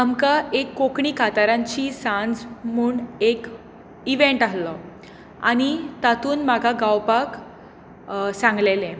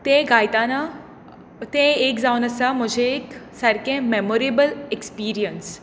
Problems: constant background noise